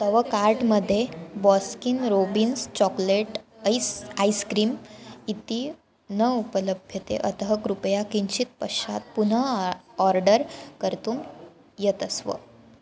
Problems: background sounds at intervals, background conversations at intervals